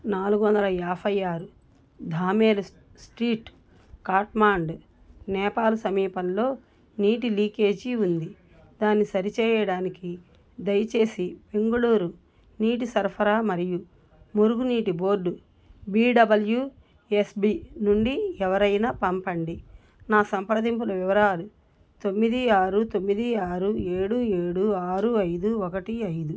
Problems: none marked